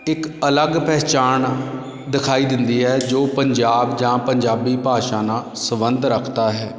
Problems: constant background noise, background conversations at intervals